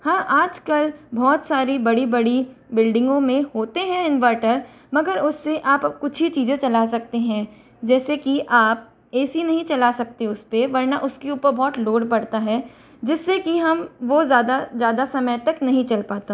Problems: none marked